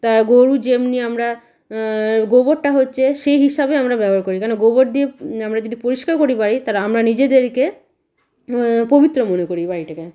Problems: constant background noise